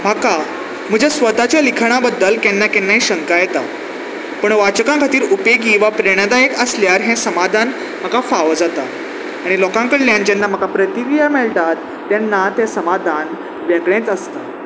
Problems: none marked